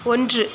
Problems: constant background noise